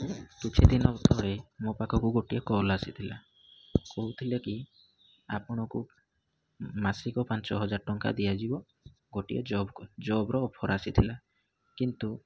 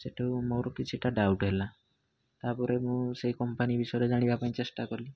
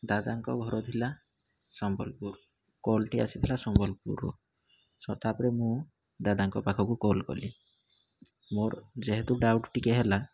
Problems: low volume